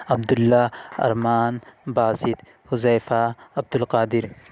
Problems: constant background noise